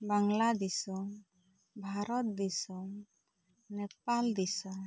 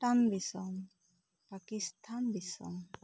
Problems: none marked